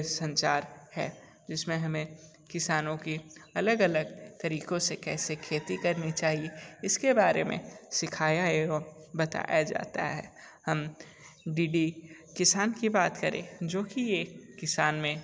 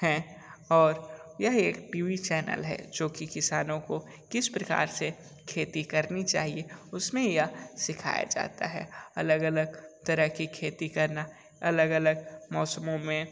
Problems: none marked